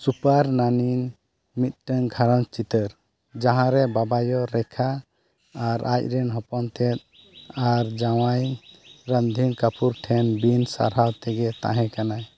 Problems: background sounds at intervals